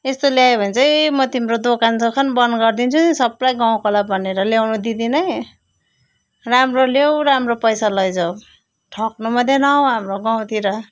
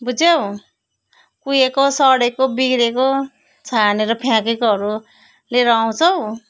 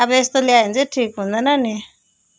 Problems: background sounds at intervals